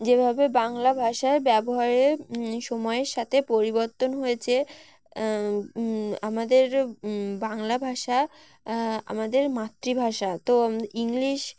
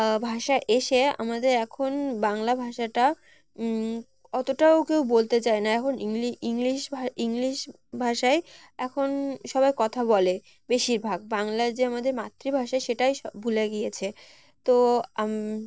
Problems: constant background noise